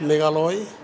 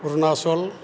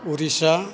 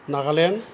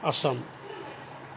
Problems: none marked